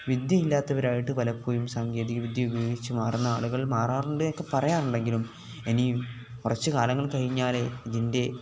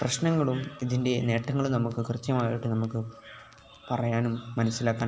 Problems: background sounds at intervals, background conversations at intervals